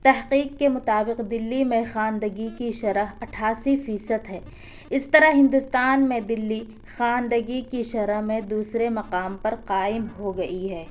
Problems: none marked